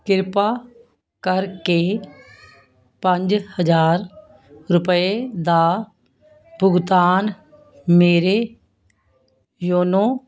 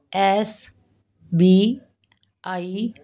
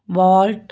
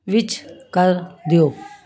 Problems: continuous background conversations